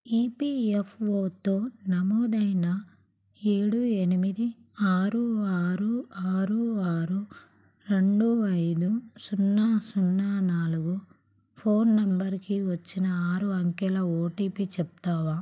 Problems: none marked